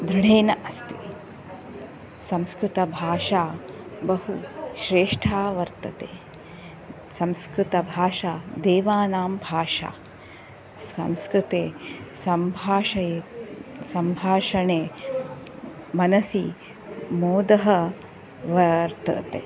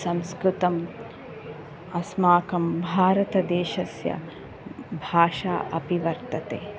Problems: none marked